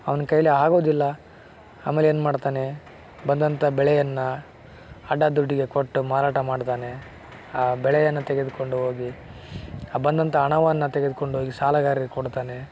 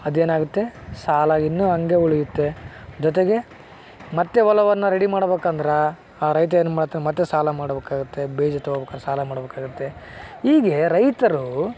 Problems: background sounds at intervals